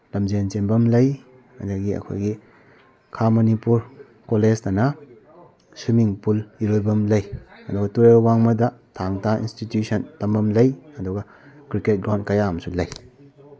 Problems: background conversations at intervals